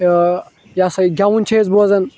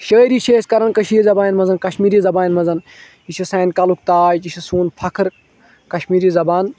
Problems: constant background noise